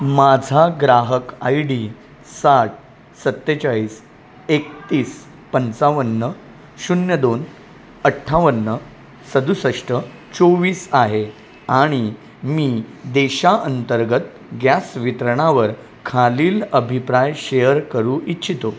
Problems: none marked